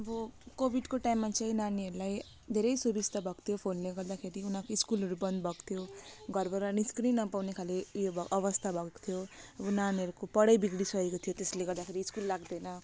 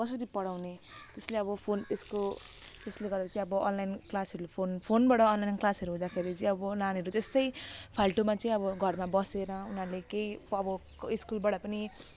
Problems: background sounds at intervals